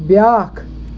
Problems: constant background noise